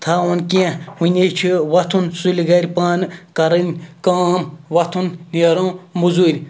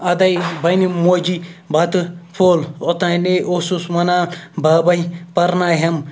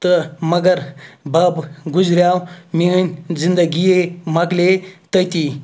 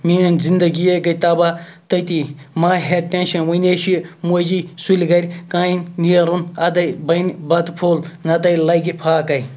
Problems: none marked